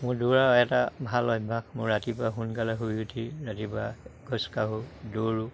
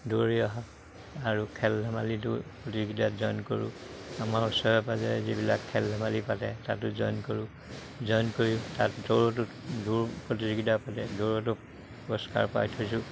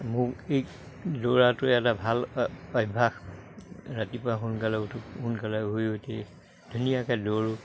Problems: none marked